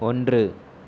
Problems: none marked